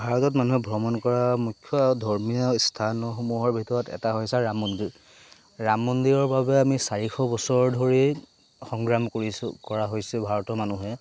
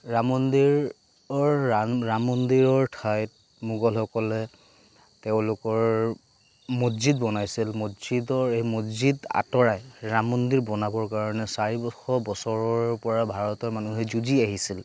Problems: background sounds at intervals